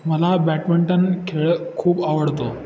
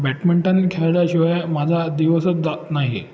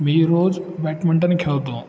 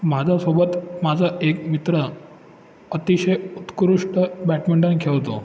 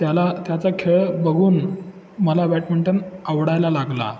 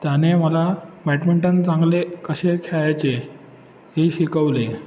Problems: constant background noise, echo